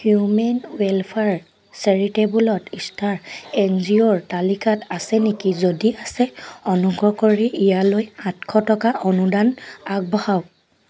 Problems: constant background noise, background conversations at intervals